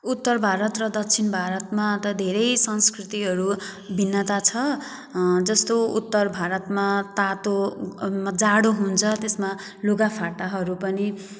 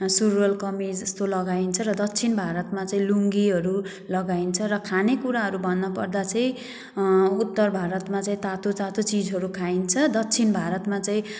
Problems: background sounds at intervals